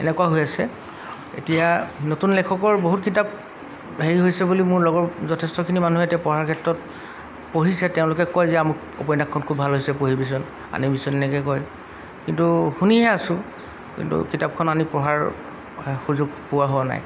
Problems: background sounds at intervals